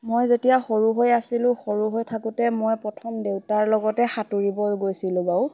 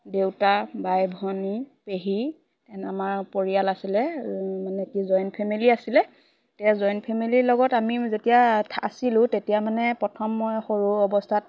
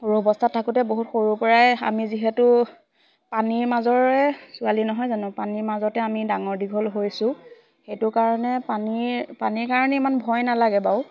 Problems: constant background noise, background conversations at intervals